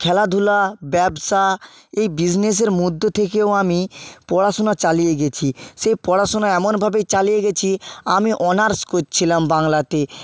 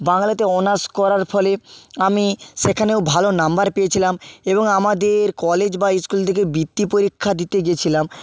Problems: none marked